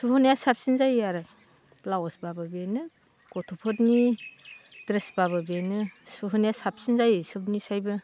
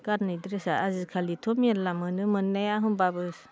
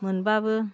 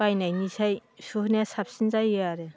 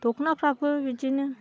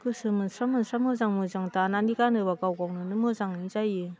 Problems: none marked